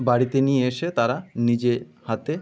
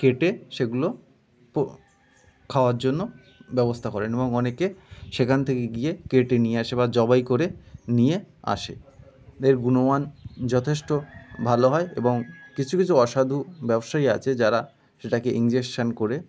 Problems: constant background noise, continuous background conversations